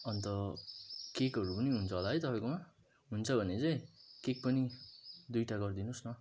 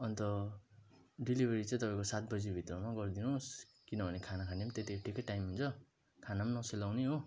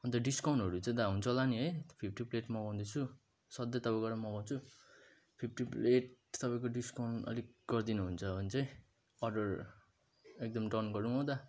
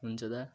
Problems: background sounds at intervals